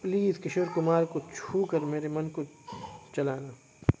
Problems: constant background noise, continuous background conversations